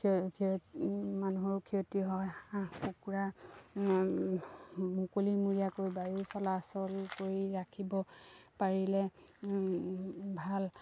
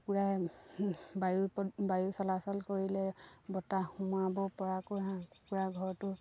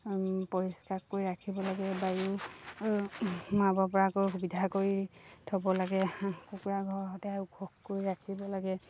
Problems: low volume